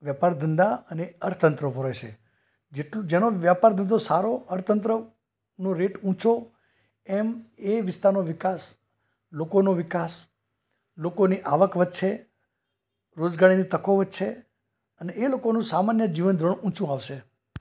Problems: none marked